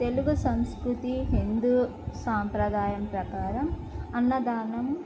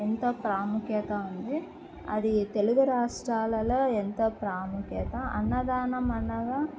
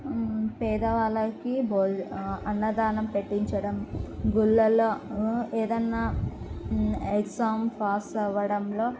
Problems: low volume